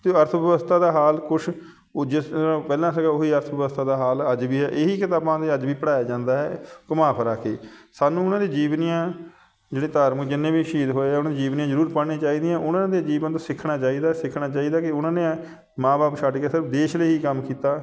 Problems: constant background noise